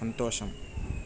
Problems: low volume